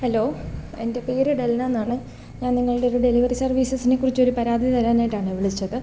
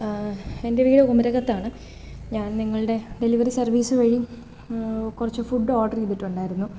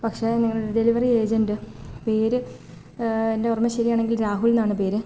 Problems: background sounds at intervals